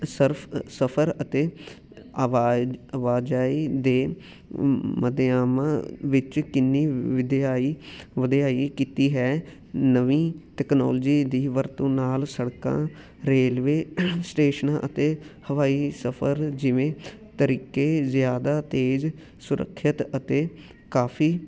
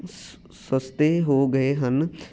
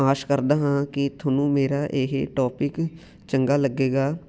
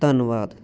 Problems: none marked